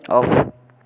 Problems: none marked